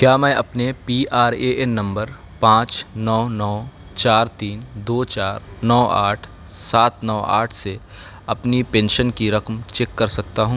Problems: background sounds at intervals